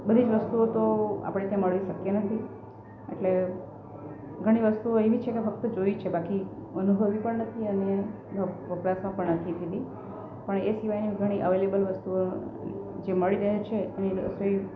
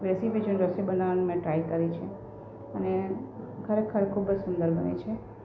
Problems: constant background noise